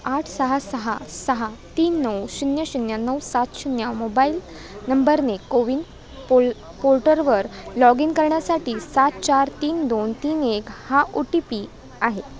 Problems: constant background noise, background conversations at intervals